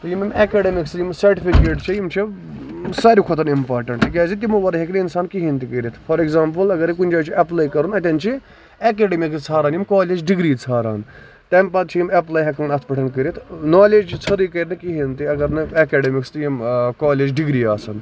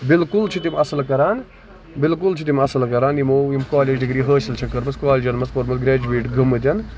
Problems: constant background noise, background conversations at intervals